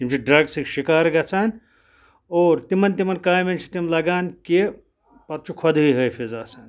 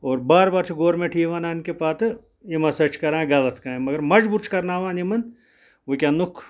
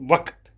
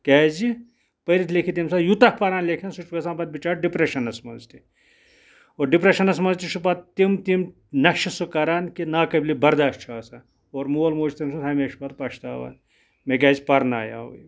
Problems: none marked